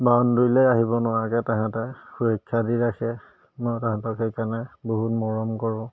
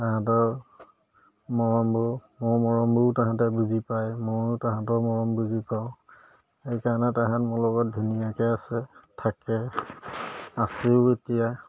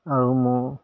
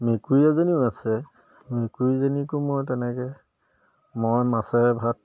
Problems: none marked